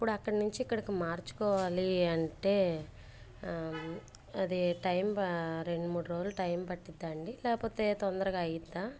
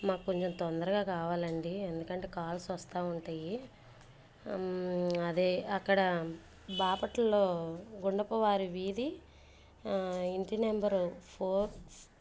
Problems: none marked